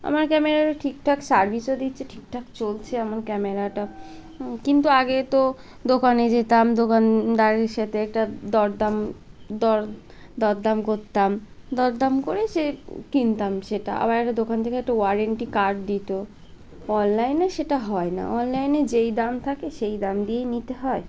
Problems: constant background noise